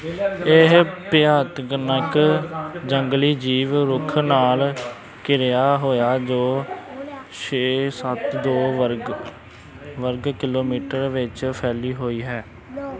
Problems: constant background noise